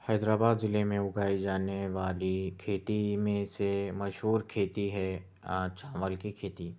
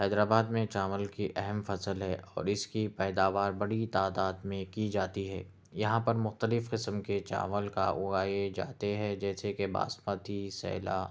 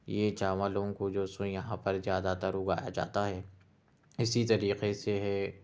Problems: none marked